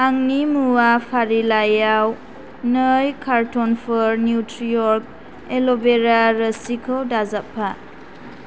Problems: none marked